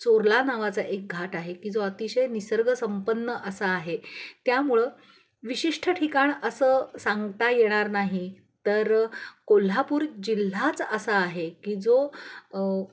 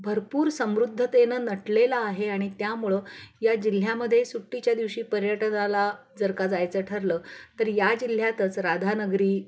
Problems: none marked